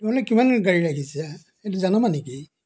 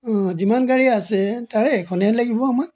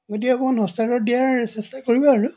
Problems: background sounds at intervals